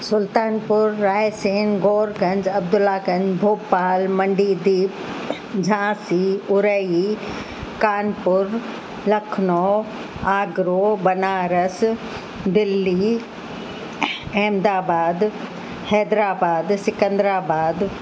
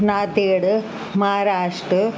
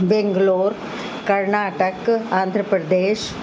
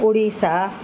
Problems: constant background noise, echo